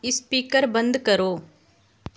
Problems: none marked